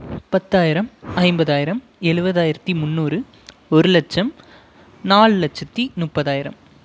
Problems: none marked